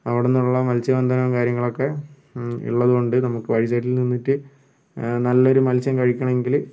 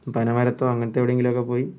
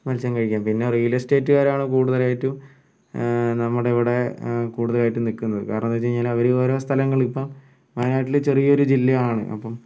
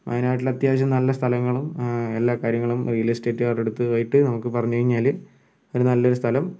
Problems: background sounds at intervals